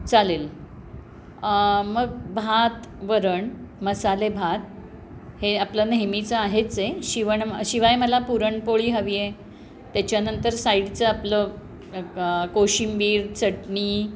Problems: constant background noise, background conversations at intervals